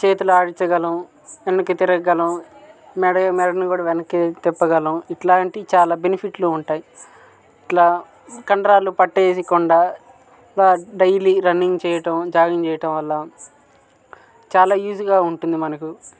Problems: constant background noise, background conversations at intervals